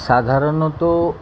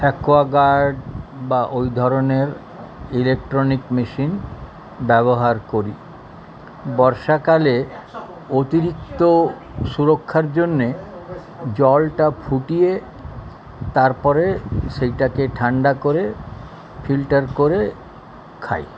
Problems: continuous background conversations